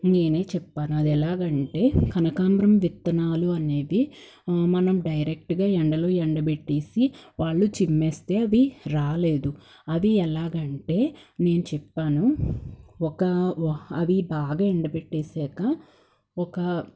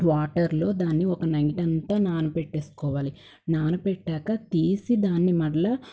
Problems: background sounds at intervals